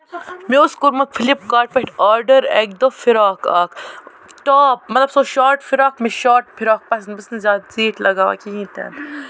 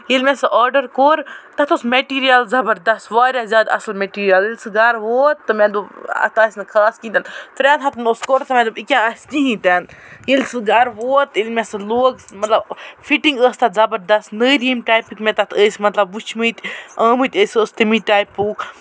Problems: constant background noise